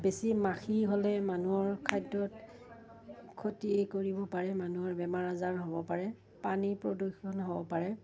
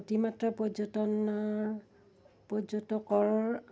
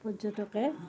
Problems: background sounds at intervals